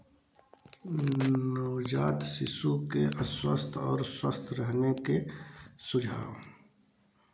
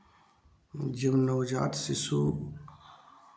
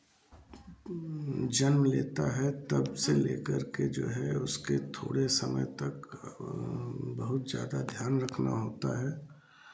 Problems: background sounds at intervals, low volume